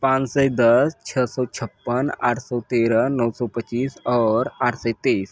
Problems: none marked